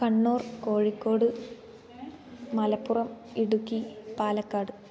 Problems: constant background noise